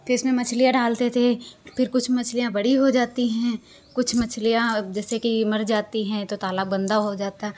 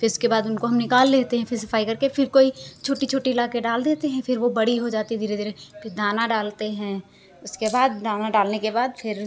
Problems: constant background noise